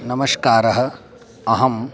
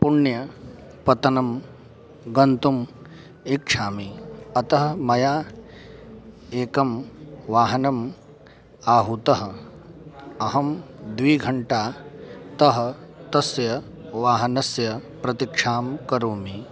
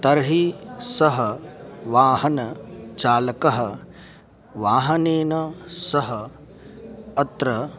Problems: constant background noise, continuous background conversations